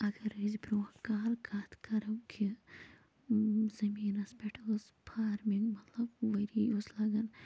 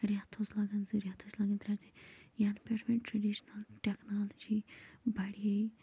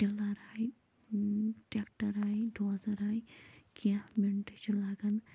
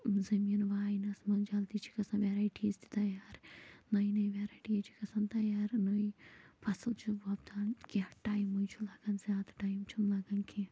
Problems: constant background noise, low volume